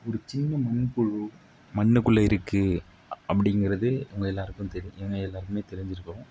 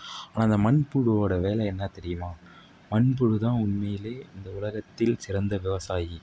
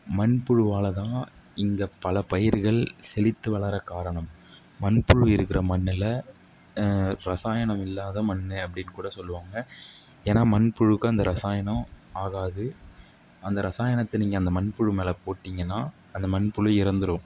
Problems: none marked